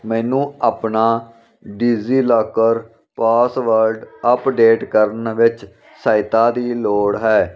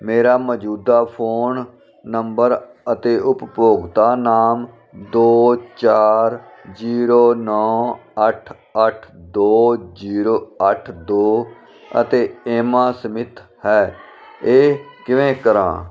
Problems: none marked